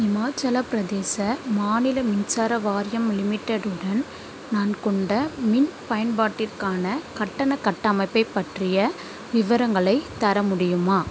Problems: constant background noise